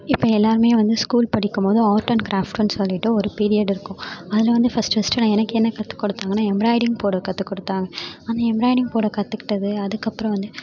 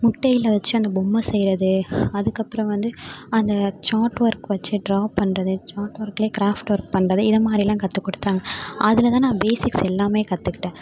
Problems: none marked